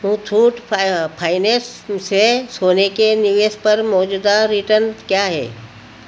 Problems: constant background noise